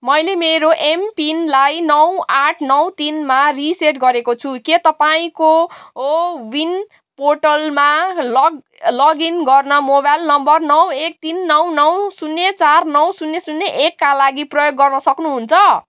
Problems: none marked